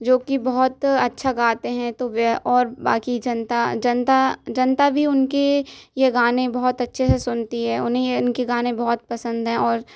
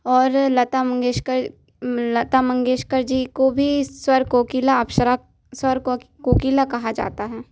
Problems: constant background noise